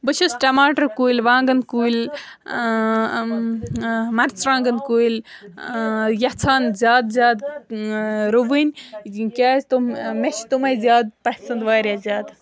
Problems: background sounds at intervals, background conversations at intervals